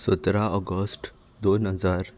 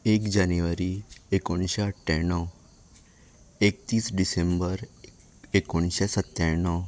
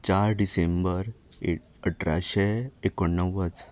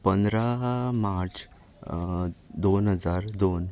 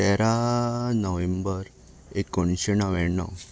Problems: background sounds at intervals